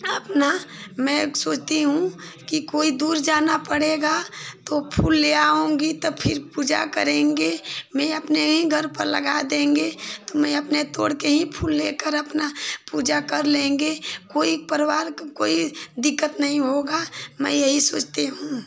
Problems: constant background noise